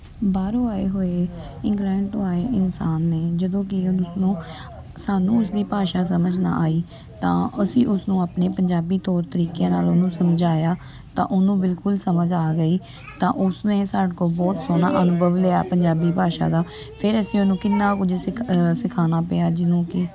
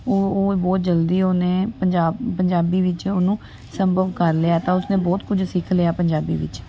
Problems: constant background noise, background conversations at intervals